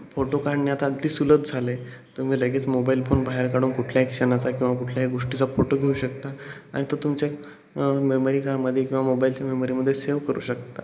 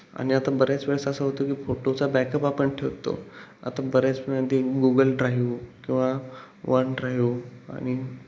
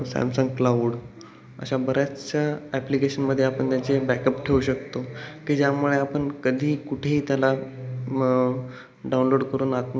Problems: constant background noise, background conversations at intervals